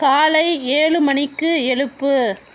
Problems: constant background noise